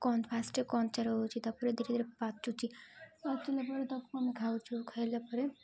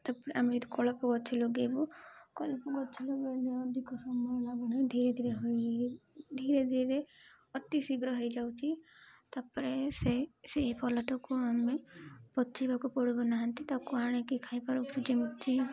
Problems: none marked